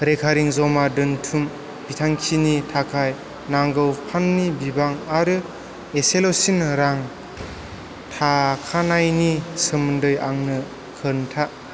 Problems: constant background noise